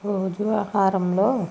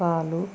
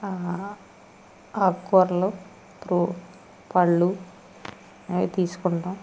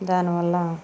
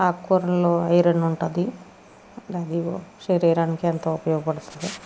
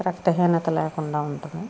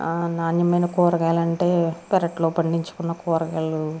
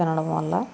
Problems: none marked